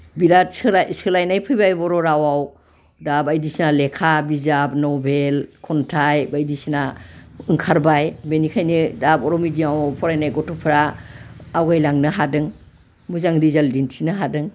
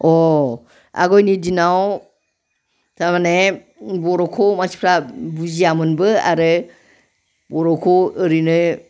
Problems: background conversations at intervals